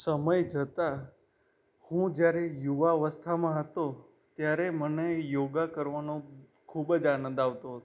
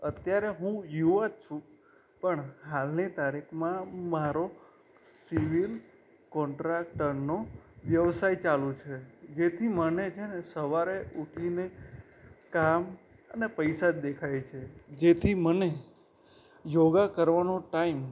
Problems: background sounds at intervals